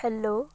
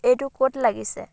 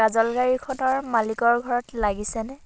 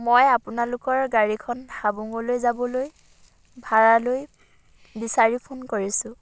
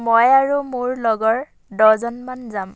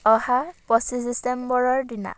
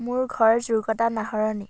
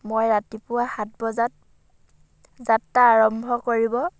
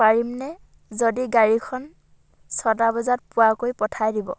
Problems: background sounds at intervals